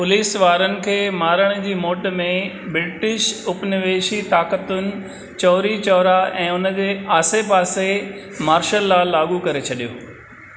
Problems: none marked